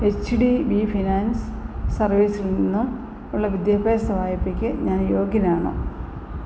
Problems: constant background noise